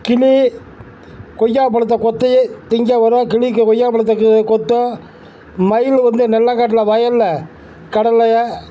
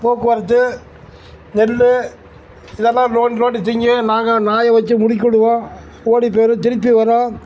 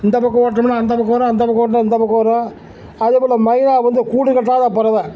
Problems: none marked